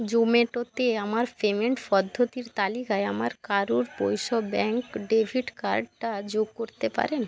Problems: constant background noise